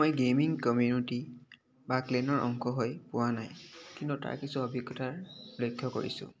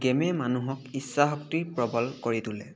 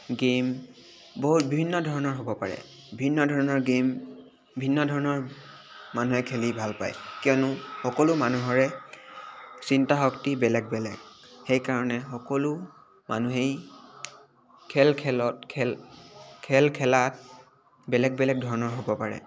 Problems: none marked